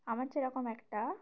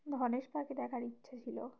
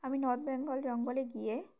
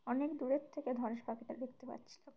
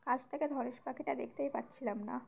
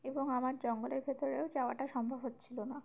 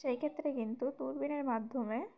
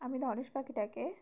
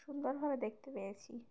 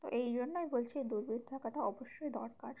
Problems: background sounds at intervals